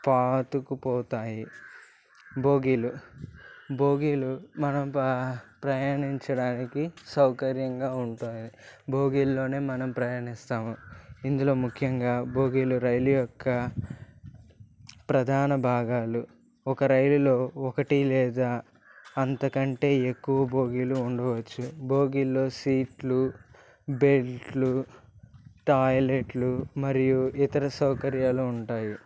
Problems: constant background noise